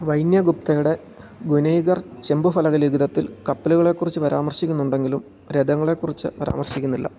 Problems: none marked